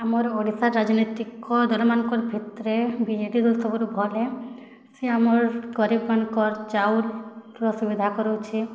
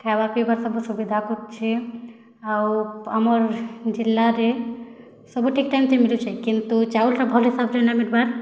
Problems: none marked